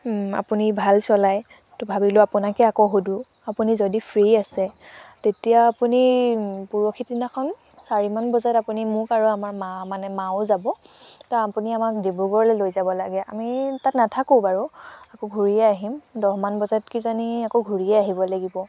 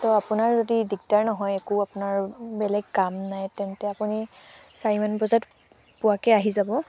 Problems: constant background noise